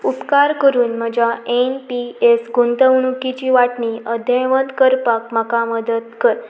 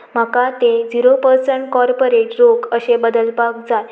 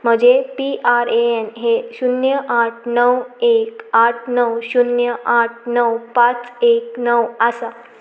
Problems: background sounds at intervals